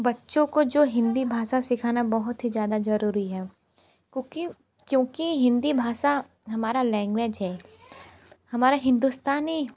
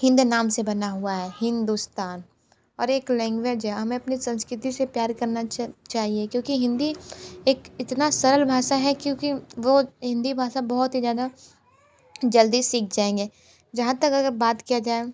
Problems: constant background noise, continuous background conversations